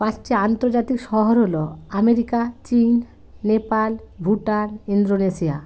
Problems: constant background noise